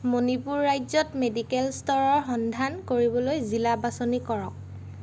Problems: none marked